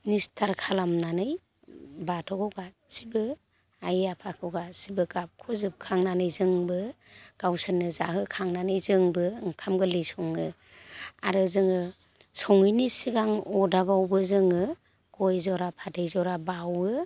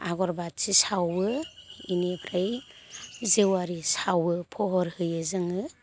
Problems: constant background noise